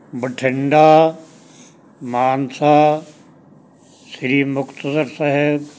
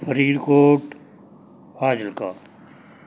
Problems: background sounds at intervals